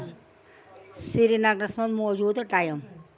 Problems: constant background noise